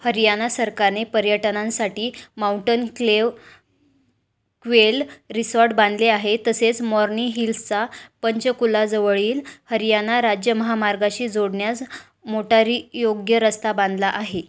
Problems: none marked